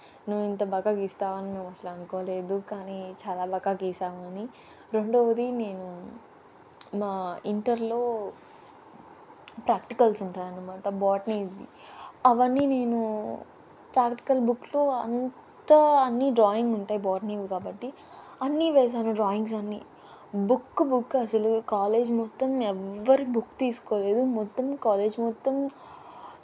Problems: constant background noise